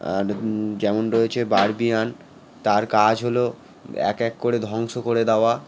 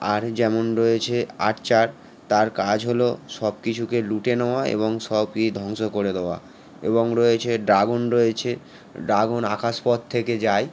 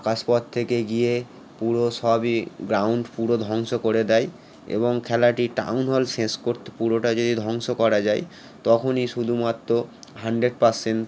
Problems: constant background noise